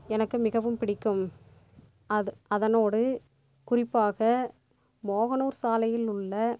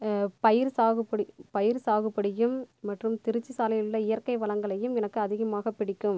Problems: constant background noise